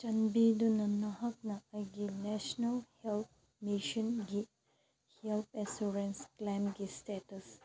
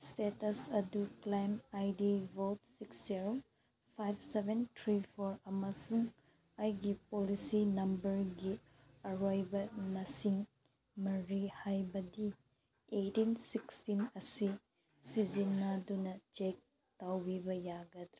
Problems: background sounds at intervals